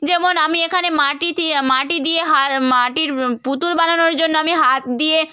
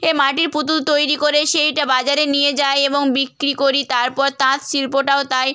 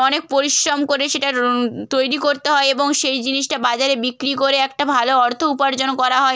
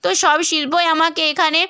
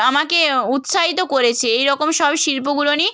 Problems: none marked